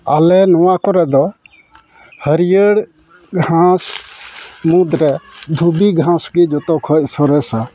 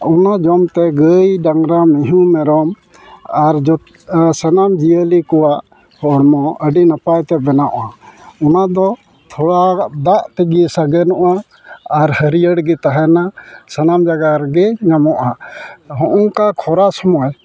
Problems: background sounds at intervals, continuous background conversations